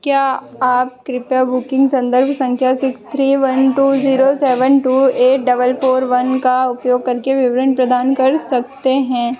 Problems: constant background noise